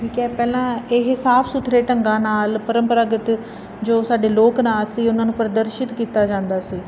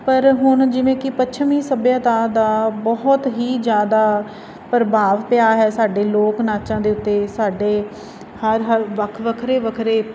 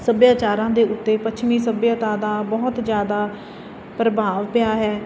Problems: constant background noise